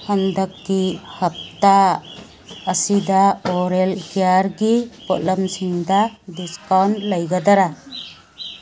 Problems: background sounds at intervals